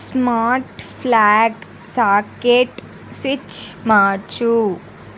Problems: none marked